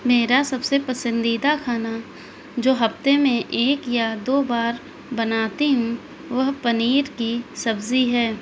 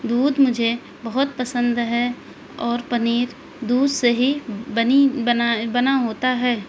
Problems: constant background noise